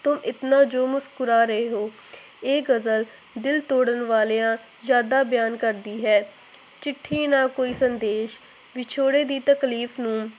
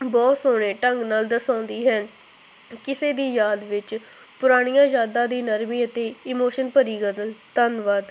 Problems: constant background noise